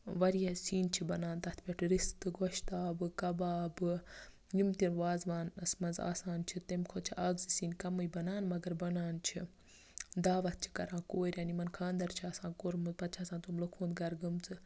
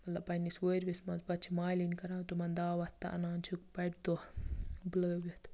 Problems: background sounds at intervals, low volume